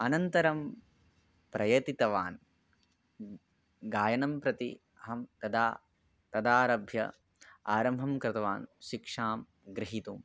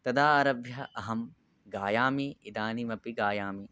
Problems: none marked